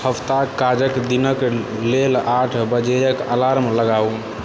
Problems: background sounds at intervals